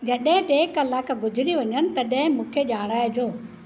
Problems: none marked